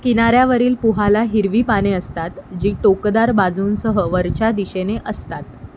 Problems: none marked